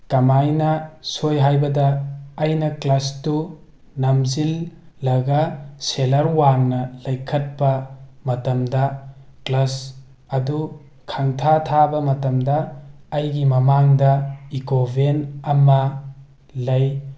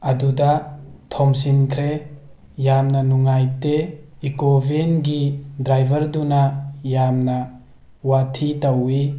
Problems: none marked